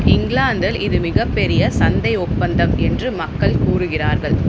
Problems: constant background noise